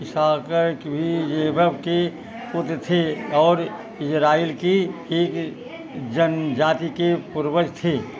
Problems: constant background noise